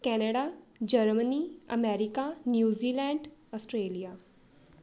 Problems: none marked